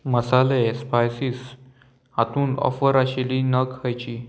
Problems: none marked